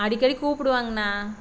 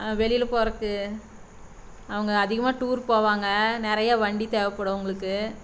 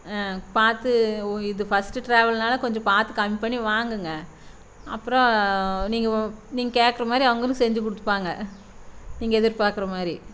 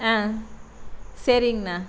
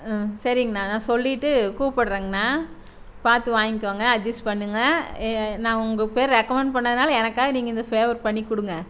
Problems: constant background noise